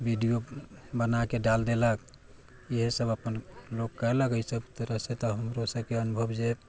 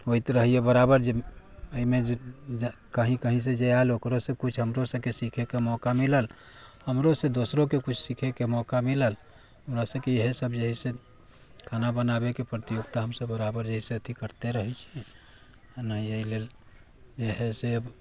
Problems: background sounds at intervals